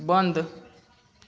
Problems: constant background noise